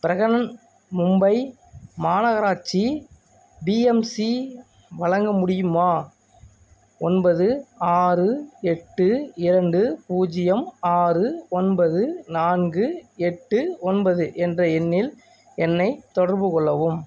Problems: background sounds at intervals